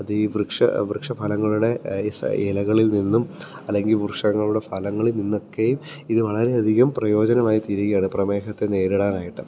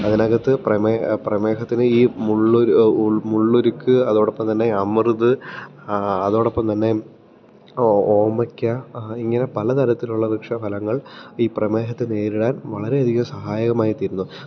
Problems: none marked